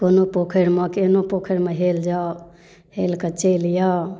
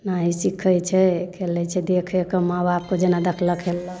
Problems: none marked